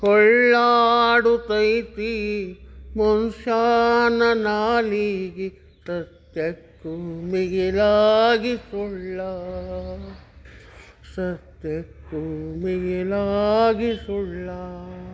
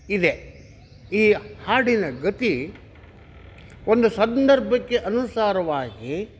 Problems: none marked